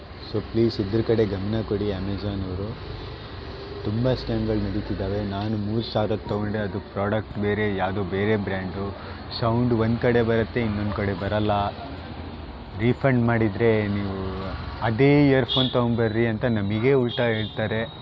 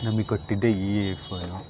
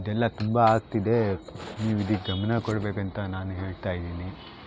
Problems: constant background noise